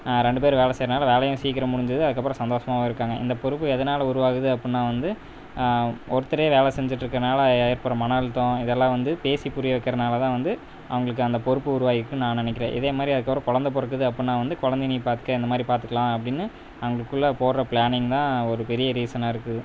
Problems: constant background noise